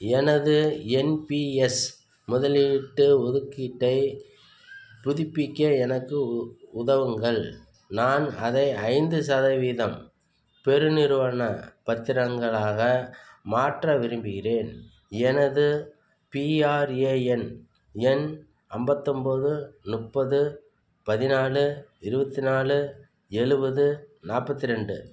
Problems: background sounds at intervals